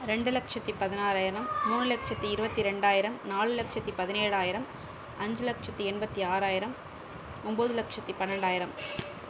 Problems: constant background noise, background conversations at intervals